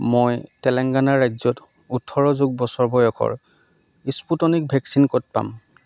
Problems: none marked